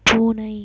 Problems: background sounds at intervals